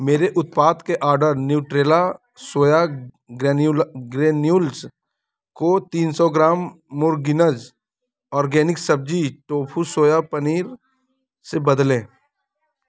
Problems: none marked